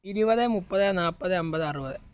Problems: constant background noise